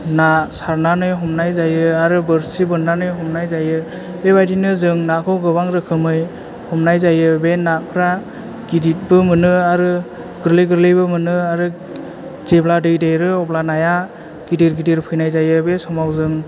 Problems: none marked